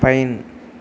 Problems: constant background noise